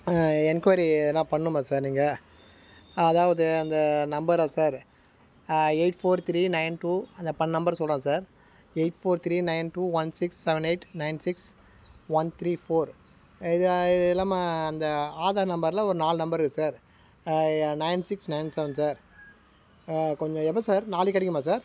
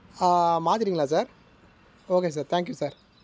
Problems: background sounds at intervals